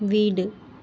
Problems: none marked